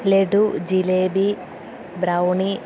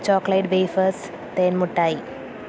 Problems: constant background noise, low volume